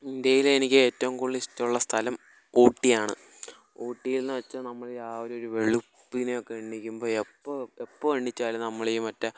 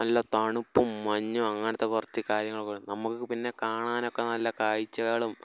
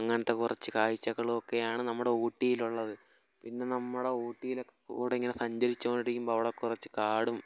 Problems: background sounds at intervals